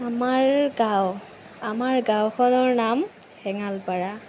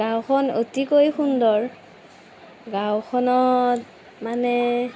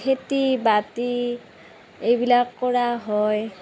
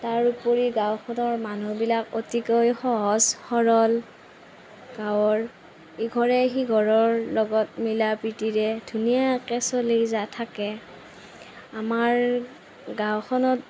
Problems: none marked